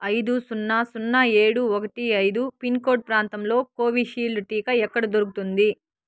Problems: background sounds at intervals